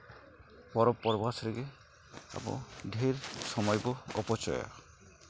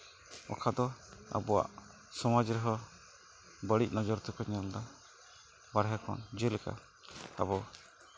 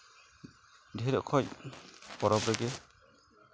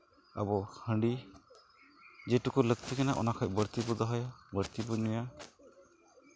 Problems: none marked